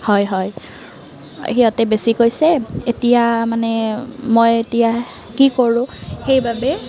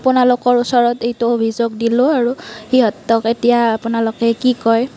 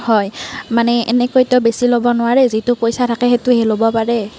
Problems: none marked